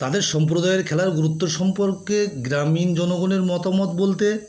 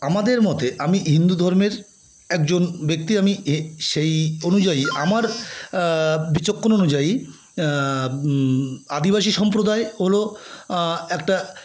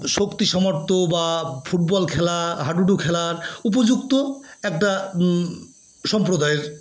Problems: background sounds at intervals, background conversations at intervals